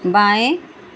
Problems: constant background noise